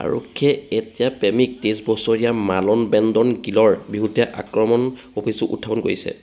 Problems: none marked